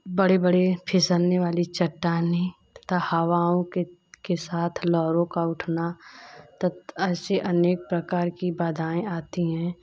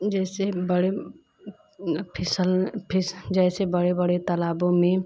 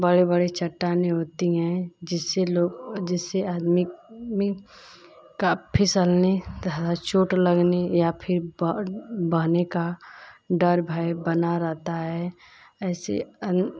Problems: constant background noise